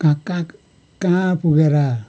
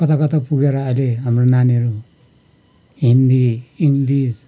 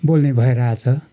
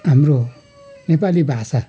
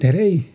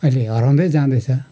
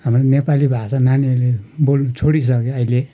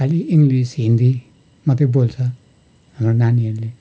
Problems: background sounds at intervals